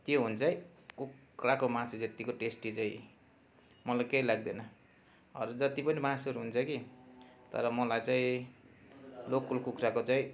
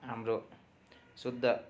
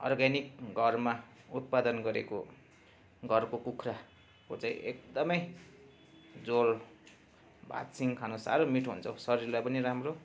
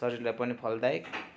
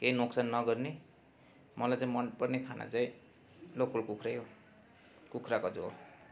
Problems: constant background noise